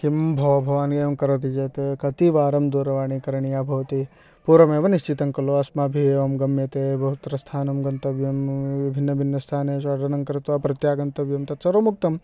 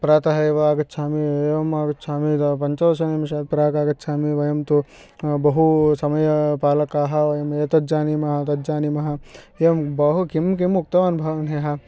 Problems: background sounds at intervals